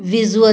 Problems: background conversations at intervals